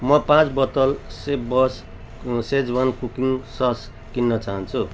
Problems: background sounds at intervals